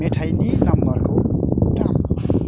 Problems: constant background noise